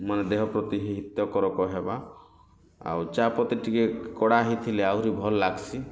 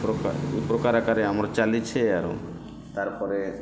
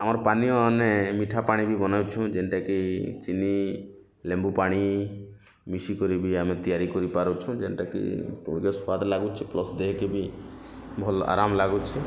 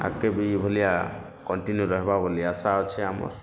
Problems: constant background noise